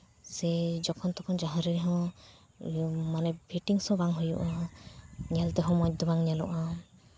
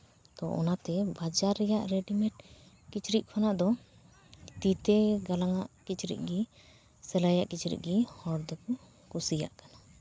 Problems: background sounds at intervals